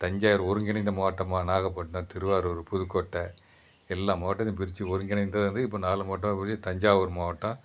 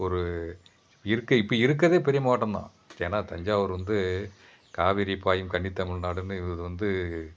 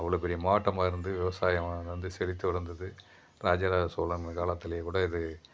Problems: background sounds at intervals